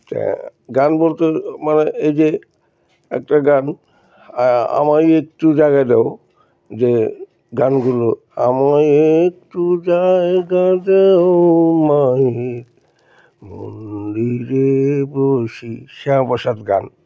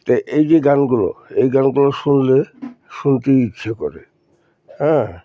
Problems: constant background noise, background conversations at intervals